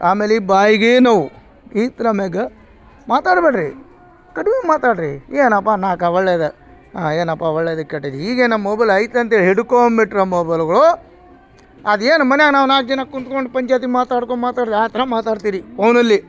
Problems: background sounds at intervals